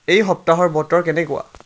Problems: none marked